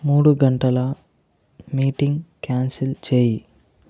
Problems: none marked